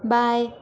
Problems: constant background noise